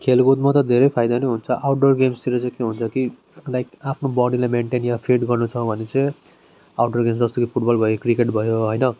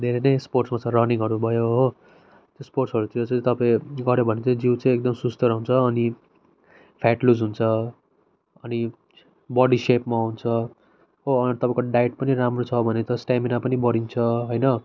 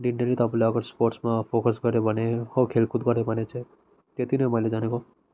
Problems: background sounds at intervals